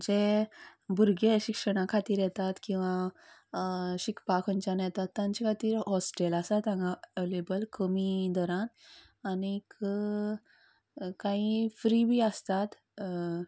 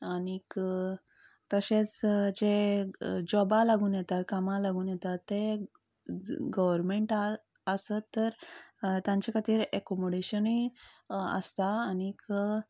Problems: background sounds at intervals